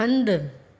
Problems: echo